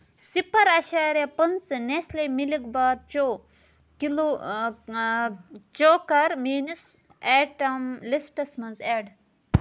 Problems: none marked